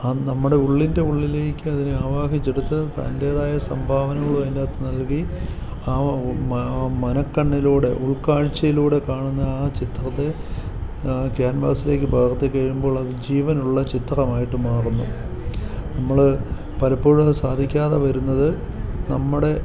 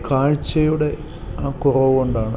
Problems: none marked